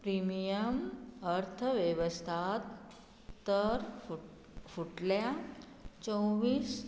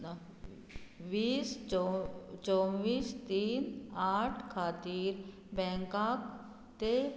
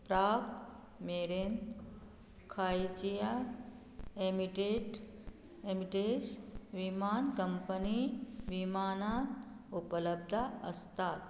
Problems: none marked